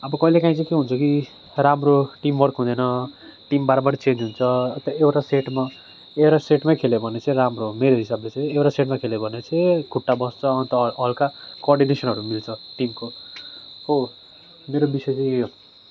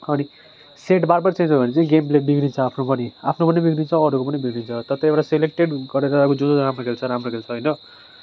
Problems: none marked